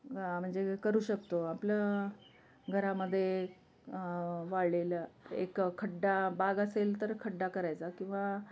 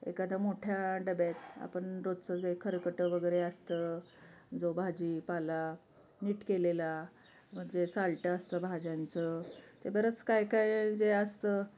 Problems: constant background noise, continuous background conversations